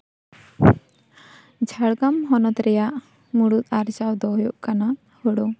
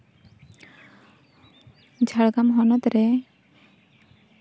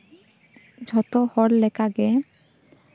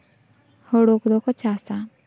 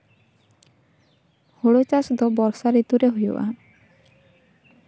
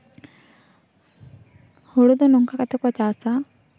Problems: background sounds at intervals